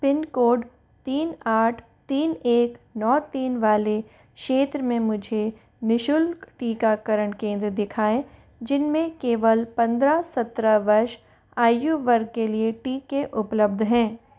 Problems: none marked